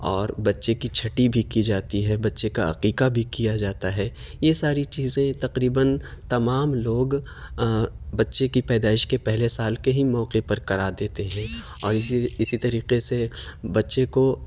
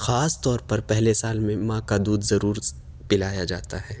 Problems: none marked